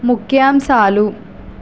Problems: constant background noise